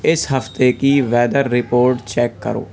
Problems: continuous background conversations